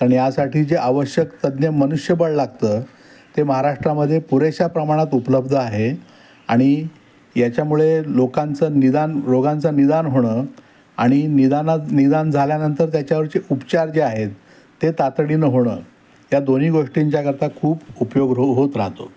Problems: constant background noise